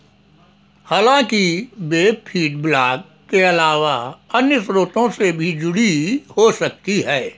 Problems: background sounds at intervals